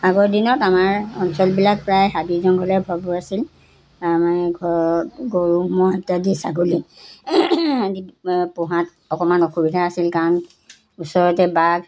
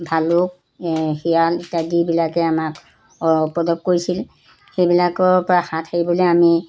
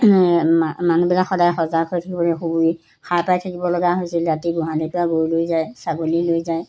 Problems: background sounds at intervals